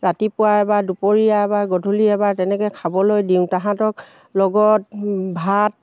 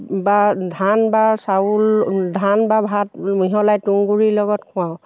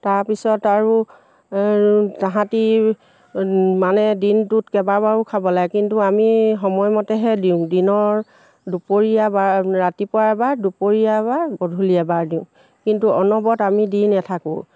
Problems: none marked